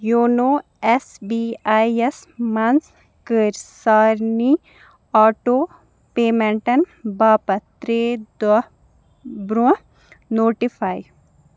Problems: background sounds at intervals